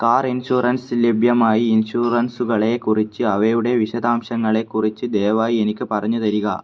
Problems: none marked